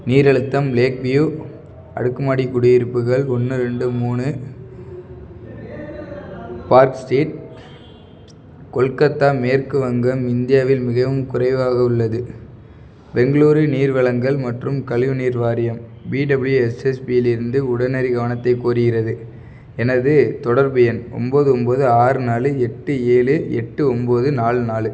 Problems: background sounds at intervals, background conversations at intervals